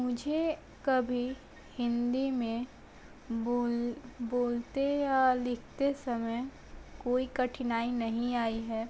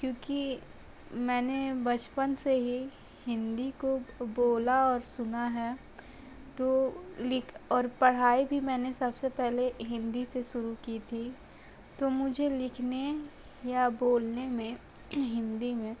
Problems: constant background noise